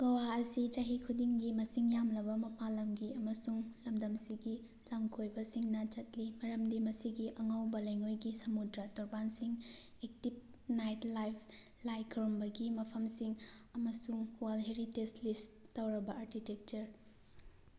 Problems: none marked